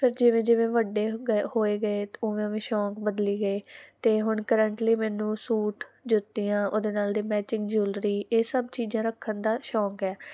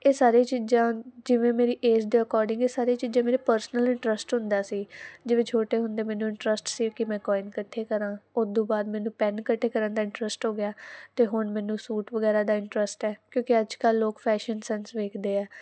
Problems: none marked